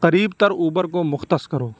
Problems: constant background noise